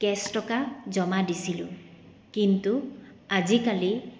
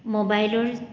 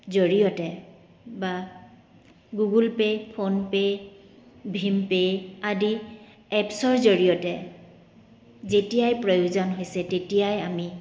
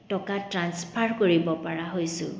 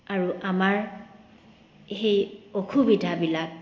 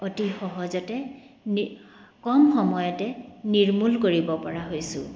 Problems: background sounds at intervals